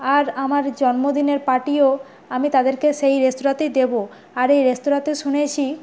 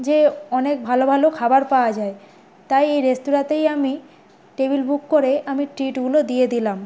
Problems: none marked